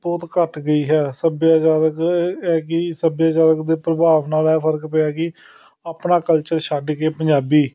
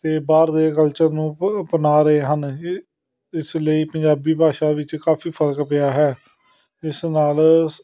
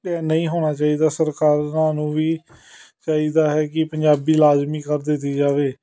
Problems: continuous background conversations